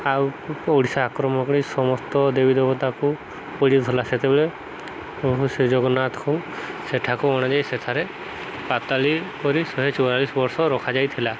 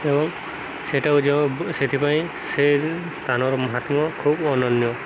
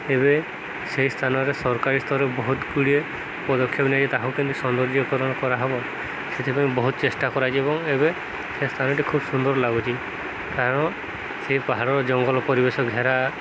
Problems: constant background noise